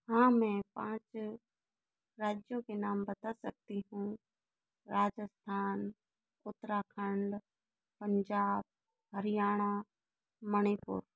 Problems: low volume